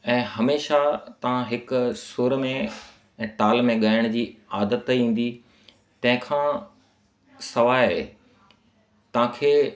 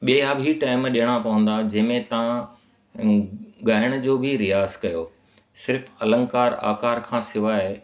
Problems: constant background noise, echo